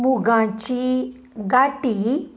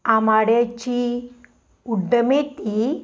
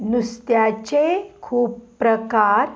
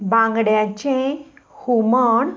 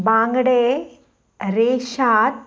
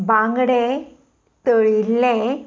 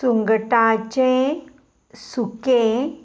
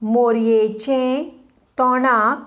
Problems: none marked